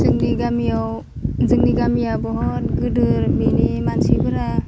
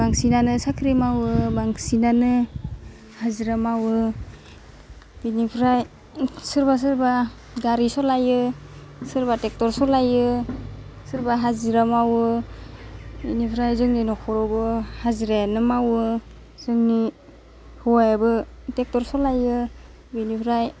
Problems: constant background noise